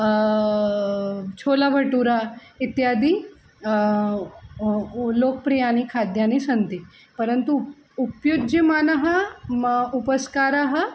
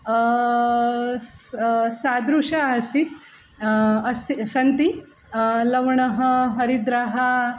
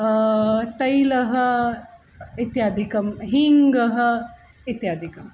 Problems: none marked